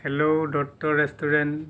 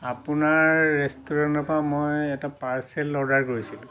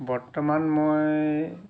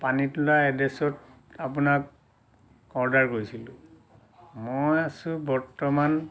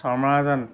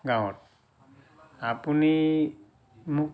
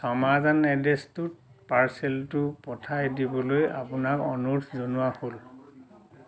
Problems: constant background noise